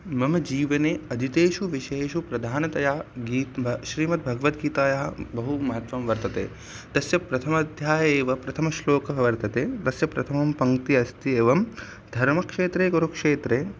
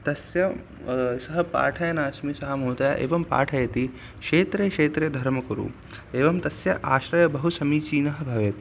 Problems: constant background noise